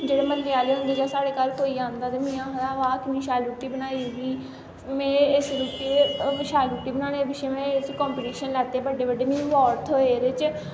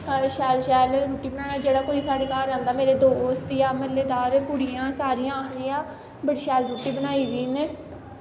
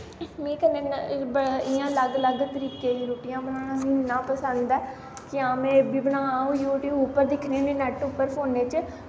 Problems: constant background noise